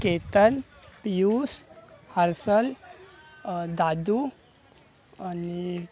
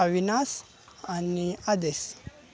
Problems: constant background noise, background conversations at intervals